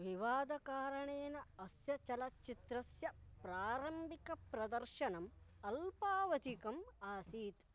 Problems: low volume